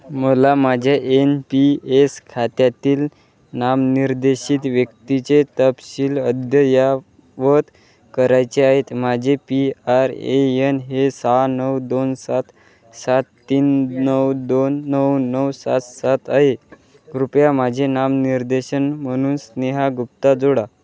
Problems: none marked